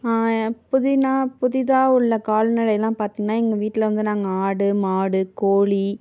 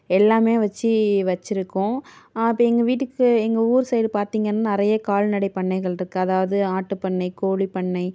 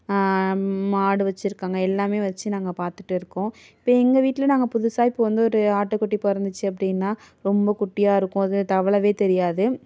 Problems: none marked